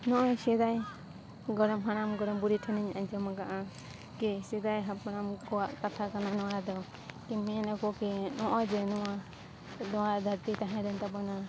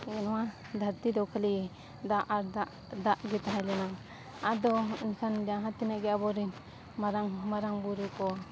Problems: constant background noise, background conversations at intervals